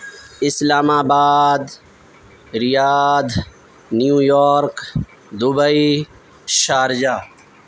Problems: constant background noise